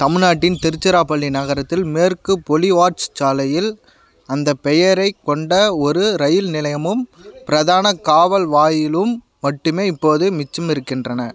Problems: background conversations at intervals